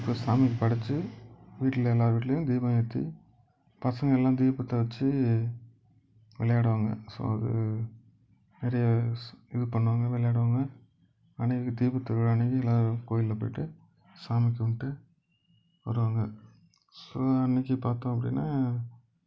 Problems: background sounds at intervals